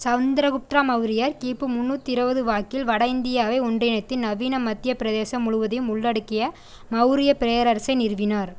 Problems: constant background noise